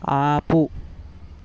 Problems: constant background noise